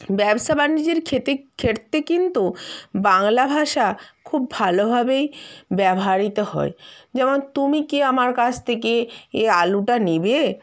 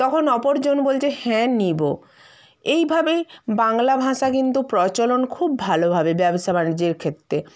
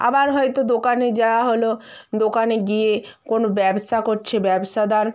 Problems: none marked